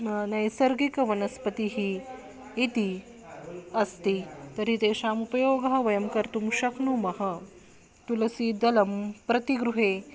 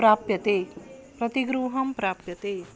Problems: background sounds at intervals